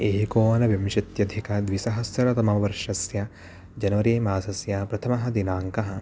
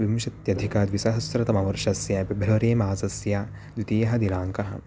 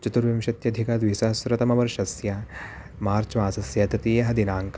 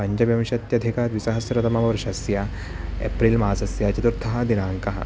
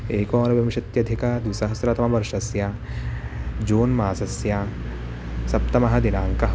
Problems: constant background noise